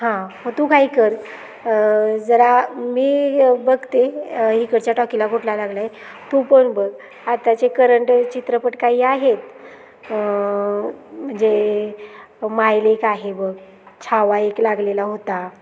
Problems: constant background noise, continuous background conversations